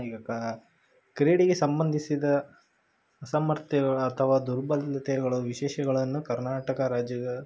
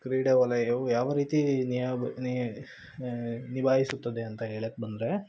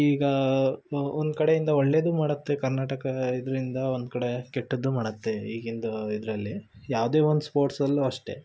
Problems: none marked